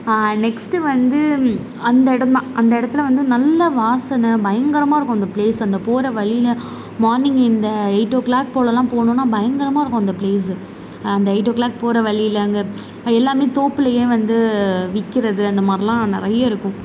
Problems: constant background noise